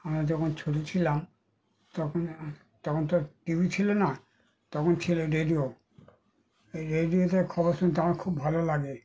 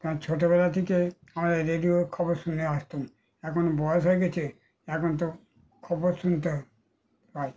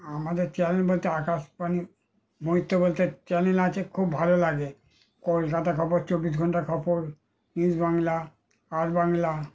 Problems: background sounds at intervals